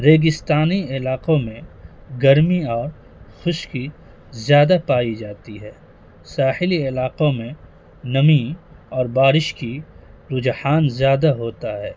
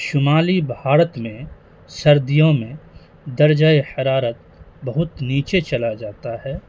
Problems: constant background noise